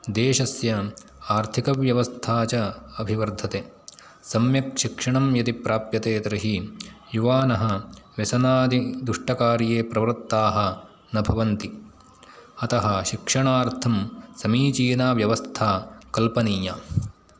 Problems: none marked